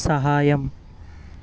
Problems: constant background noise